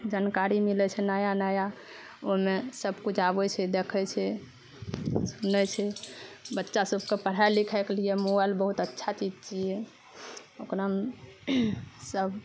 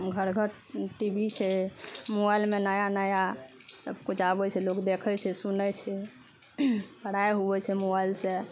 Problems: none marked